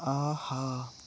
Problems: constant background noise, low volume